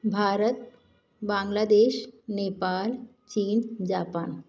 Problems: none marked